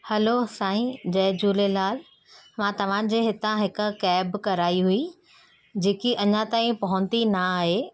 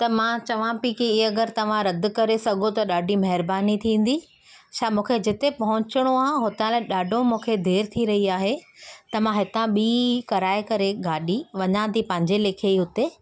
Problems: background sounds at intervals